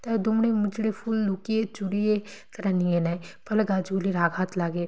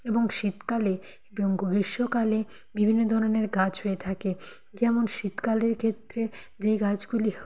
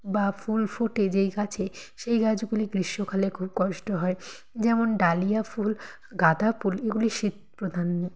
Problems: constant background noise